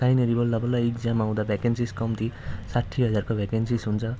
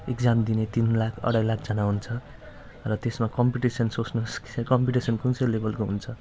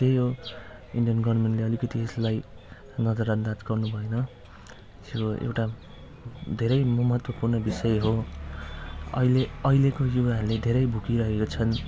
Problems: constant background noise